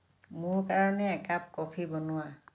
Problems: low volume